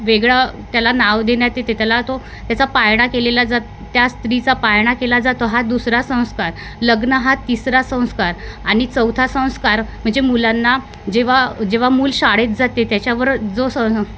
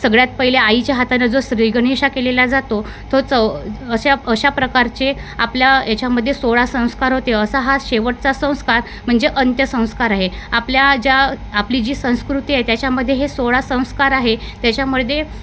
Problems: background sounds at intervals